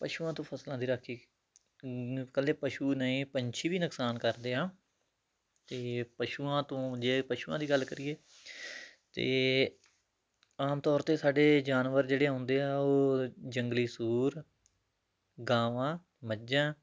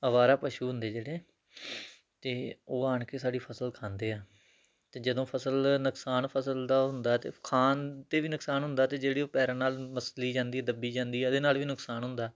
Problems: none marked